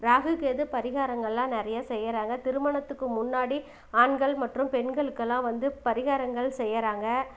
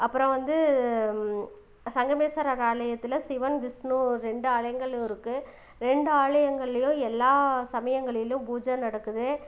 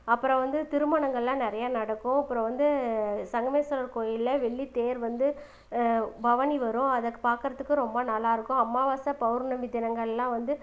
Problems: background sounds at intervals